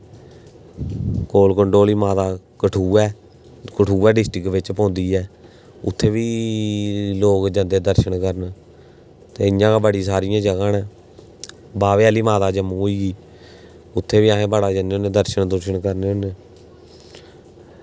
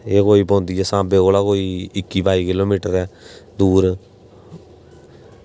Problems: constant background noise, background conversations at intervals